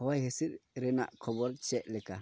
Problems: none marked